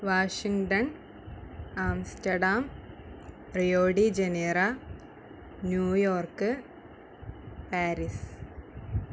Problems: constant background noise, low volume